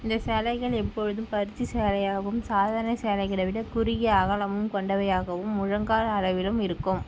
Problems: none marked